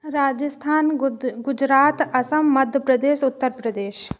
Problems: echo